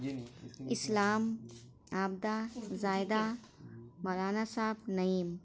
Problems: constant background noise